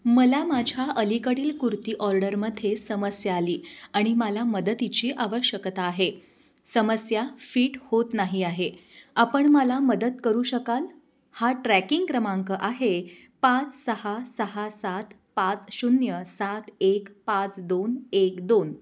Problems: constant background noise